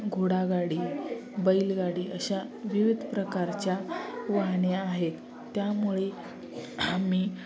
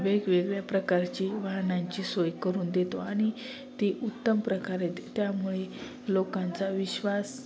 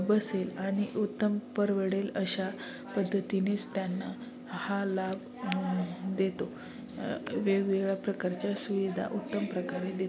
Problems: none marked